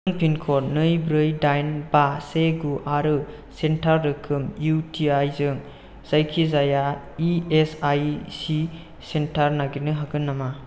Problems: constant background noise